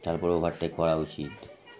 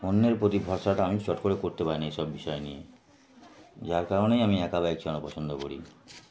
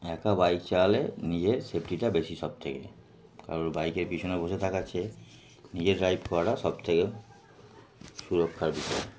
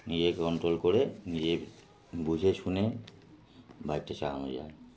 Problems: none marked